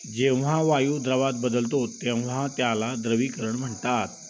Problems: constant background noise, continuous background conversations